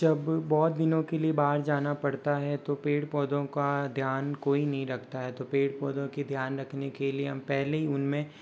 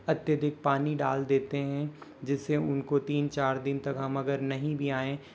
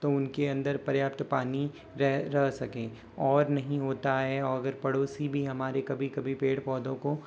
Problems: constant background noise